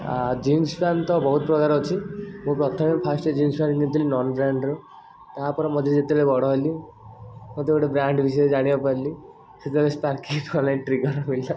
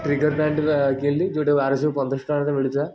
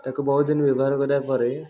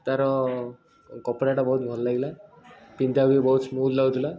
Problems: constant background noise, continuous background conversations